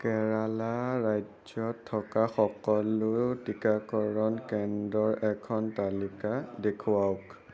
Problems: none marked